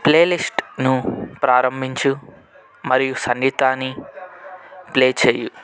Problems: background conversations at intervals